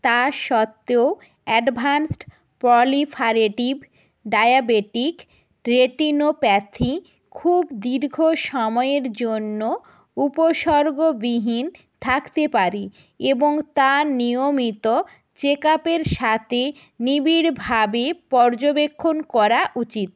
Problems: constant background noise